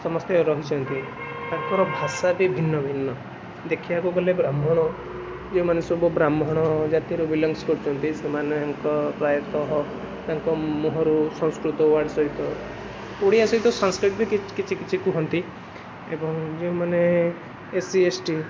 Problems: constant background noise